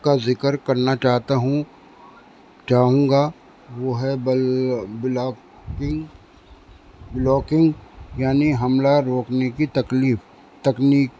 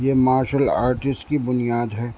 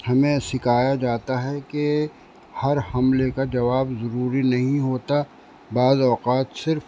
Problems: constant background noise